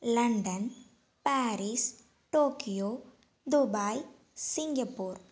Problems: none marked